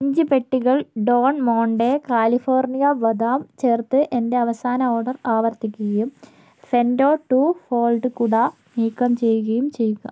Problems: none marked